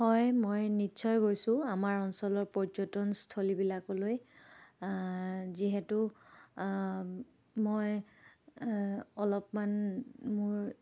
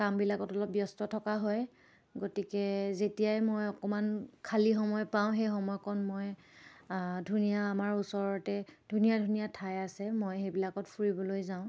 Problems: none marked